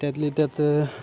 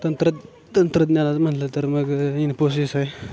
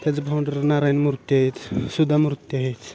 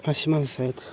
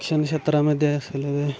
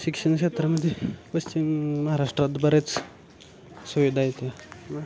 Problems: background sounds at intervals